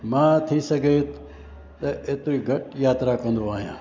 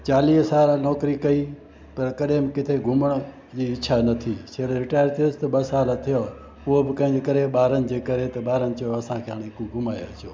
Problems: constant background noise